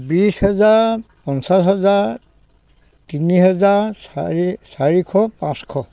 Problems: constant background noise